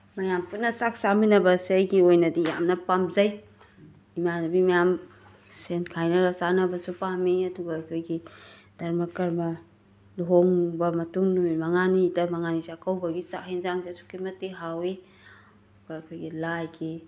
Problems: background sounds at intervals